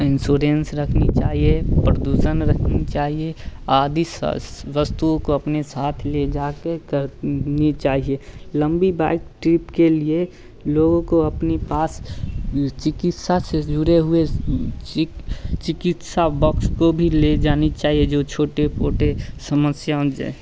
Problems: constant background noise